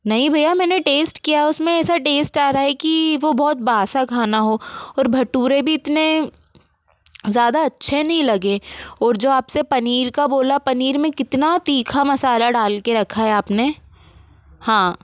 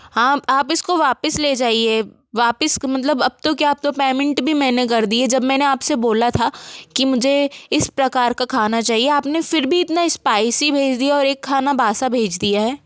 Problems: constant background noise